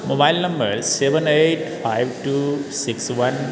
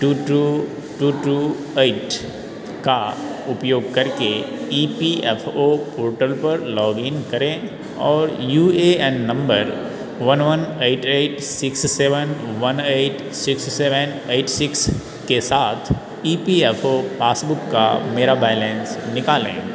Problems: none marked